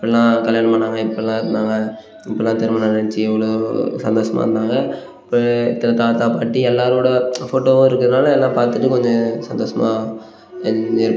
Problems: none marked